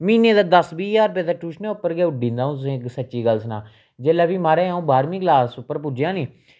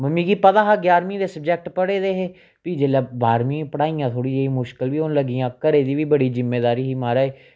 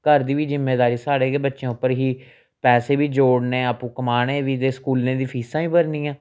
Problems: none marked